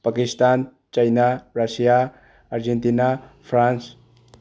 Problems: low volume